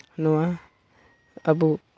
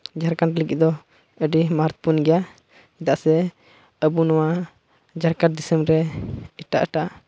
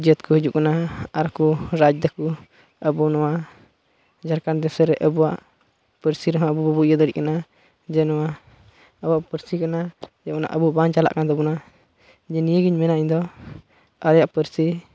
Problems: constant background noise, background conversations at intervals